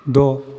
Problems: none marked